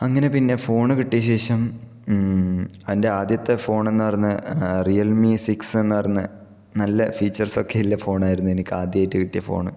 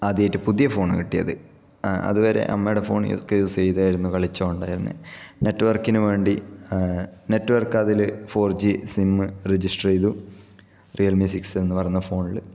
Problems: background sounds at intervals